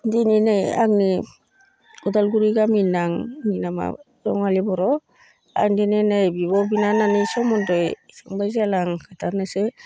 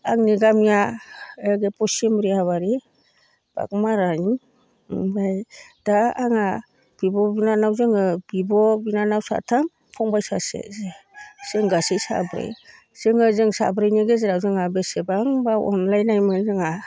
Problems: none marked